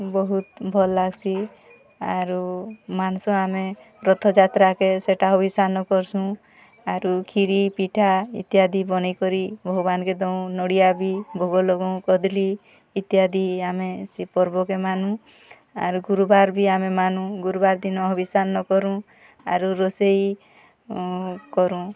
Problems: constant background noise, continuous background conversations